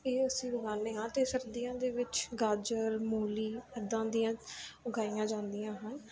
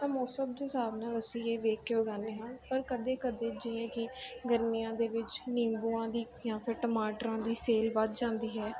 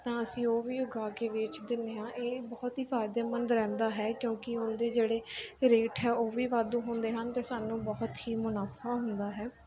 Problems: none marked